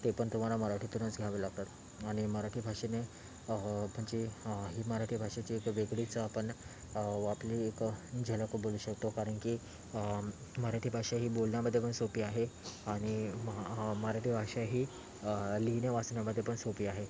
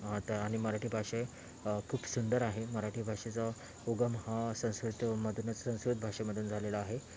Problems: constant background noise